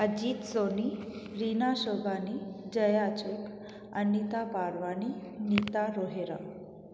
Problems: background sounds at intervals, echo